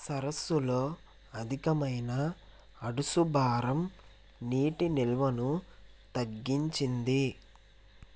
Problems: constant background noise